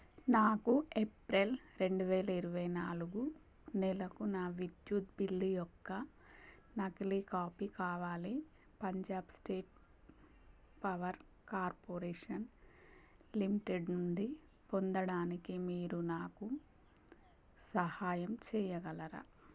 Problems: constant background noise, low volume